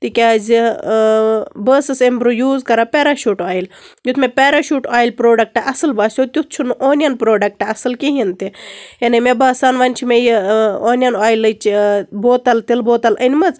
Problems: constant background noise